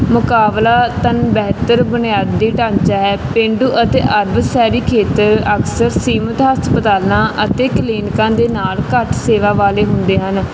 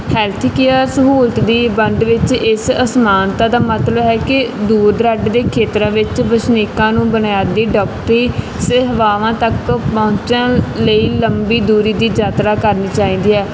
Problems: constant background noise